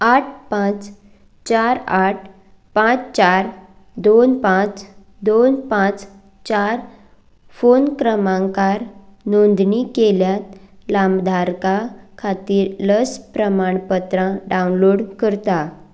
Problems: background sounds at intervals